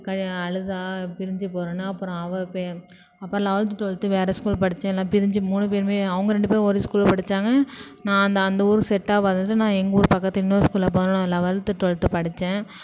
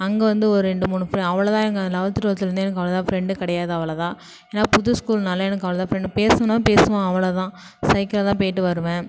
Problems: background sounds at intervals